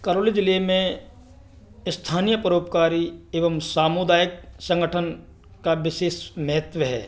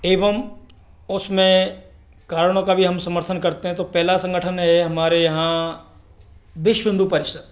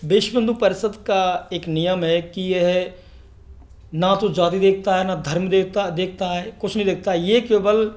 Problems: background sounds at intervals